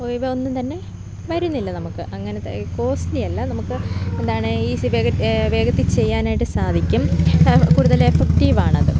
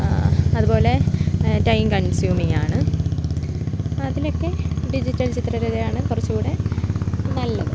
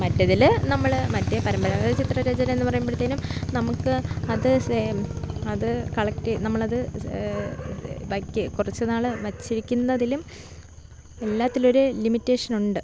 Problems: low volume